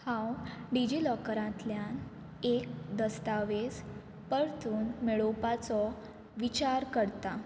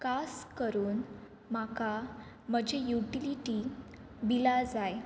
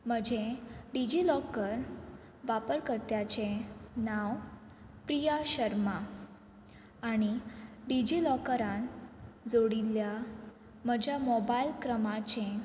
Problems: none marked